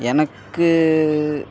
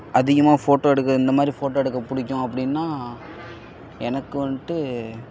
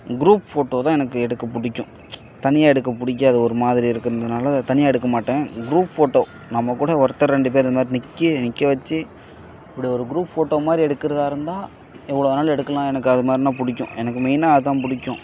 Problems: background sounds at intervals